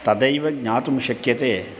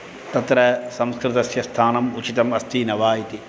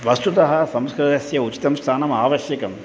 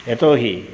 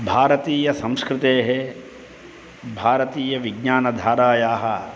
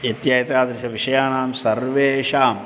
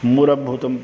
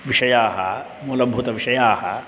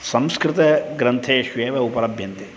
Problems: none marked